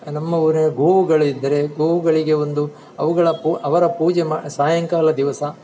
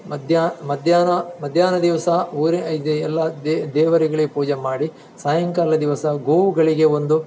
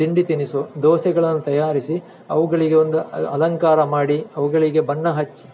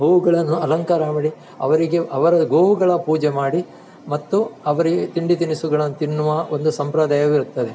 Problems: none marked